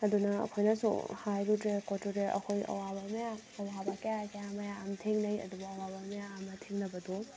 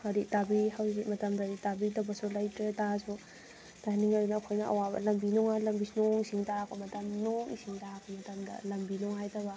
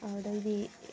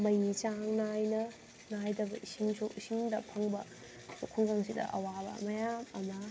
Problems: background conversations at intervals